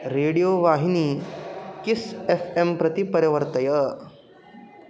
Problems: constant background noise